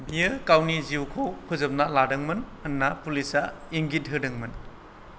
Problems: none marked